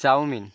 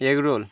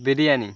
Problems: constant background noise